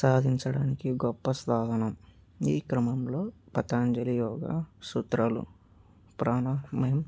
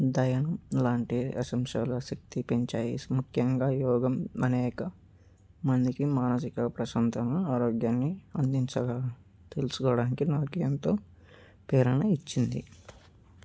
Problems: background sounds at intervals